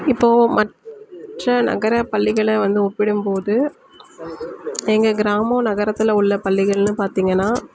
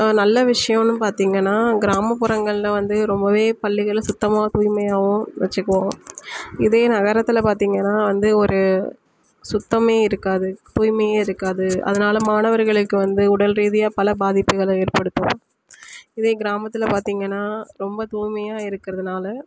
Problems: none marked